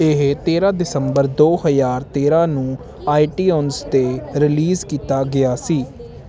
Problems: none marked